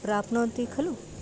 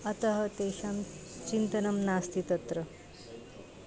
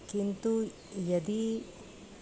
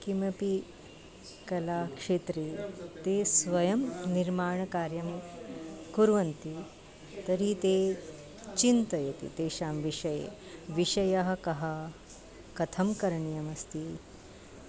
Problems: constant background noise